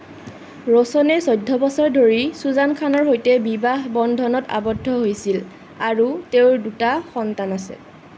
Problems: constant background noise